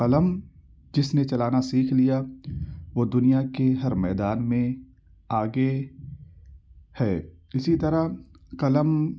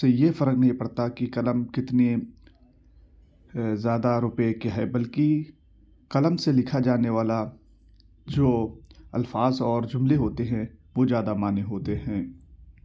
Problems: none marked